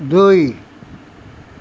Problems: none marked